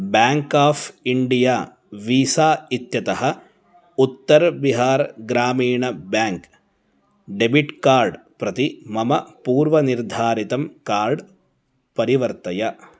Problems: none marked